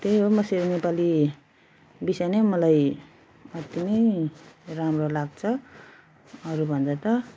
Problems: none marked